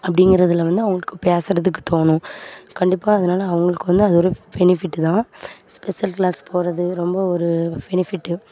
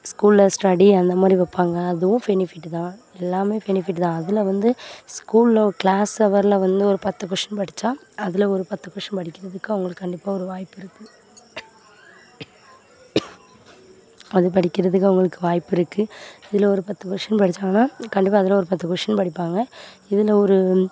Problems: constant background noise, continuous background conversations